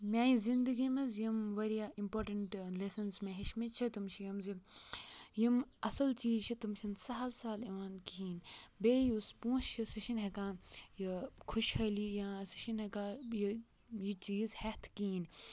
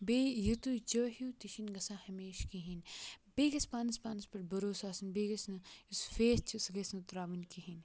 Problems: background sounds at intervals